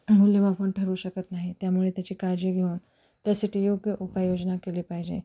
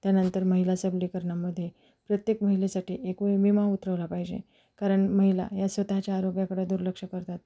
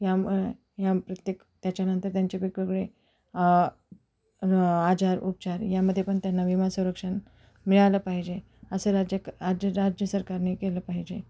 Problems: constant background noise, background conversations at intervals